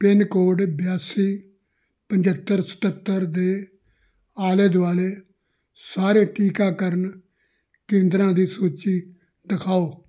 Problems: background sounds at intervals